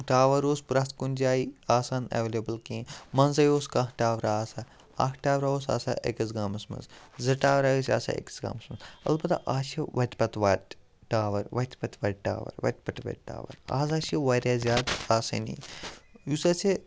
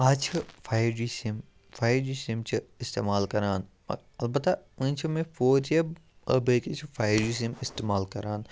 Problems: none marked